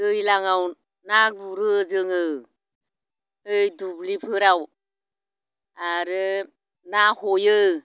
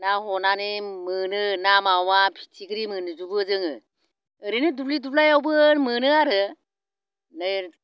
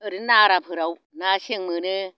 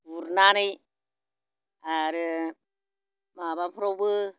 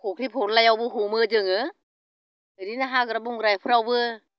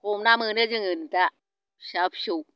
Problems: constant background noise